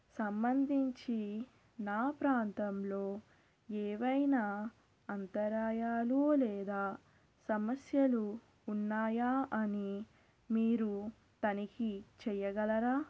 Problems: constant background noise, low volume